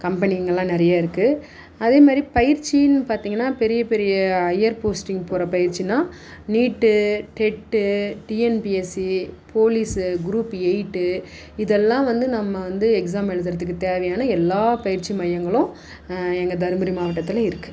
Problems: background sounds at intervals